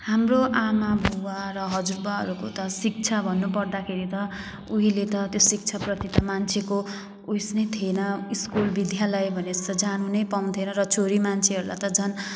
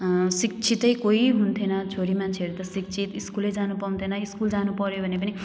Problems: background sounds at intervals